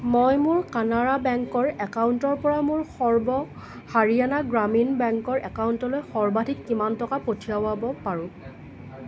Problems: constant background noise